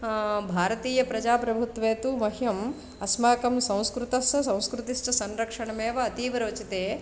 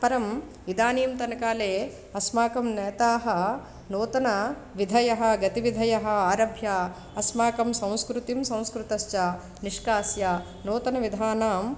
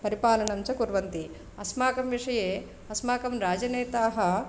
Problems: none marked